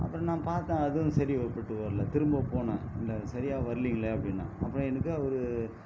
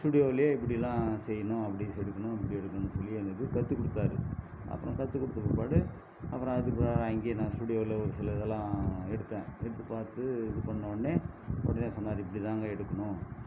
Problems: constant background noise, low volume